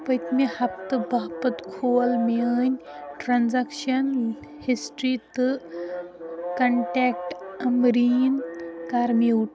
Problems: constant background noise, continuous background conversations